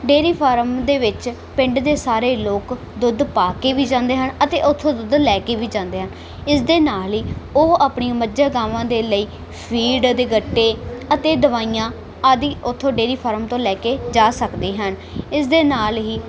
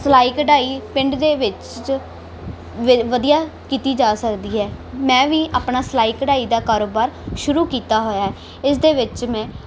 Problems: background sounds at intervals